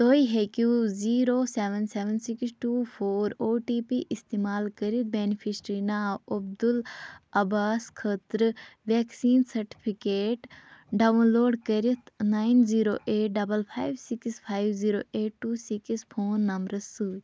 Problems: constant background noise